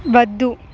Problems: none marked